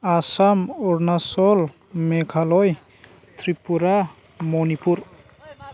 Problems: constant background noise